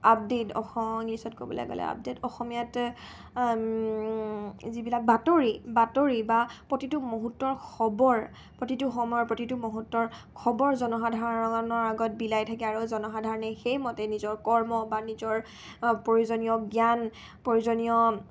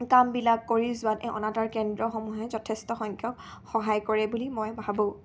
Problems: none marked